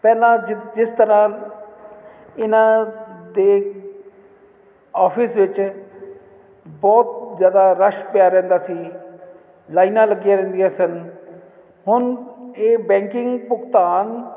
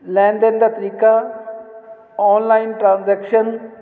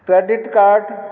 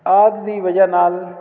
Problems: constant background noise